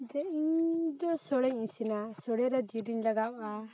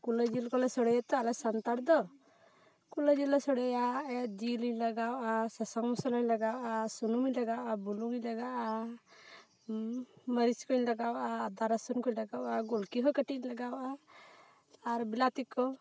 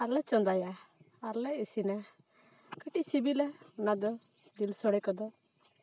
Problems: background sounds at intervals